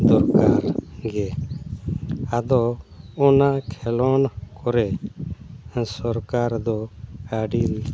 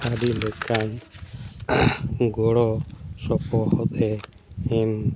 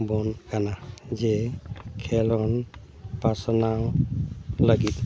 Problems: constant background noise